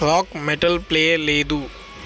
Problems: constant background noise